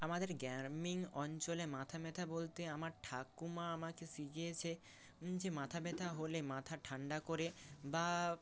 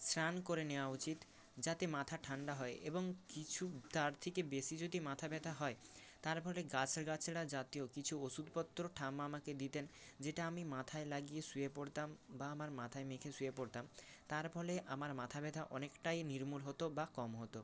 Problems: constant background noise